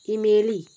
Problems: background sounds at intervals